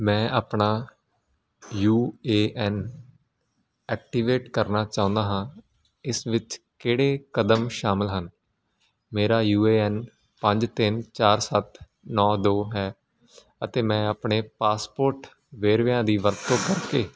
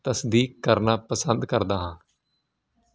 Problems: constant background noise